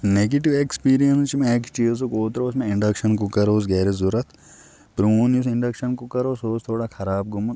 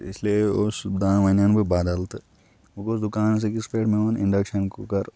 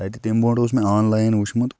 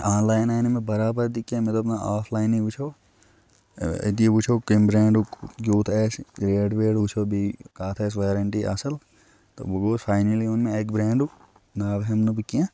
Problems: background sounds at intervals